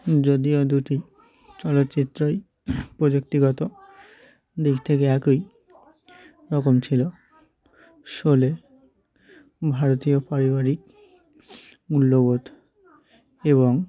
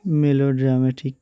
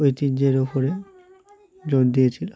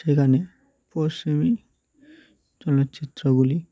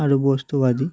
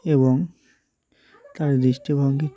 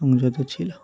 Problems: continuous background conversations